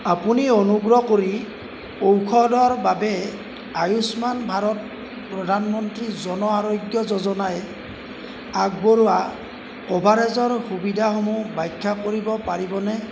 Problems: constant background noise